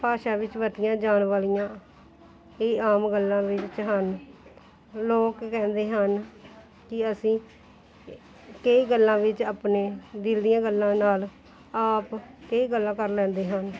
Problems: continuous background conversations